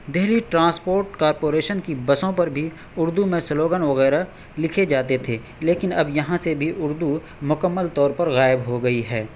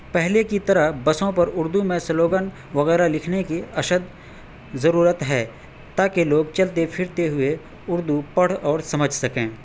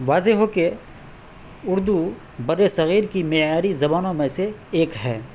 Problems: constant background noise